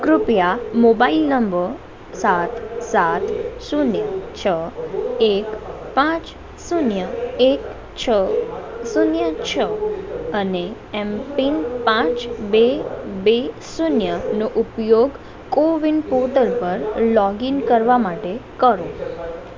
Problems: constant background noise